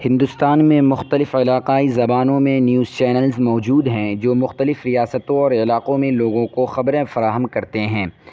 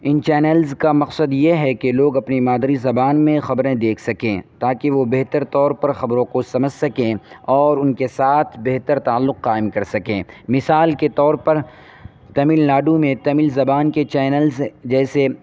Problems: constant background noise